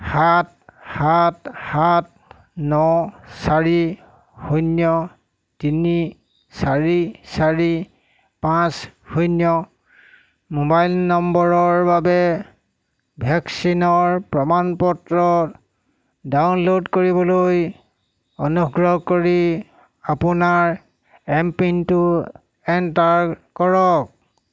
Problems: constant background noise